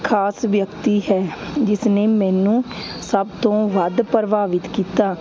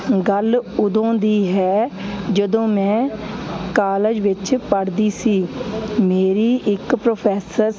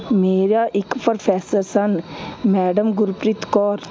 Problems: constant background noise